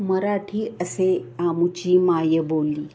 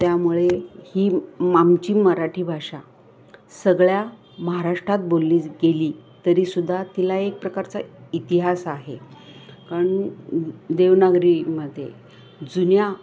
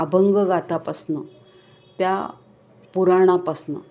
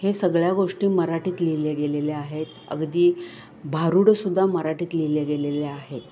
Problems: constant background noise, background conversations at intervals